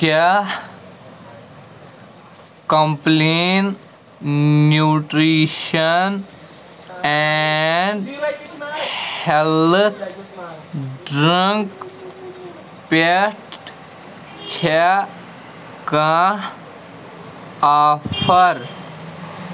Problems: constant background noise